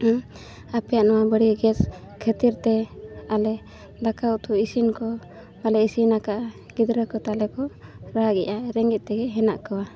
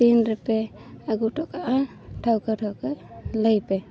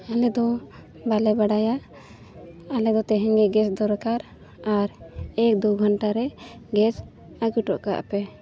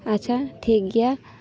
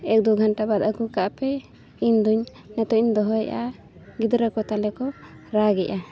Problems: none marked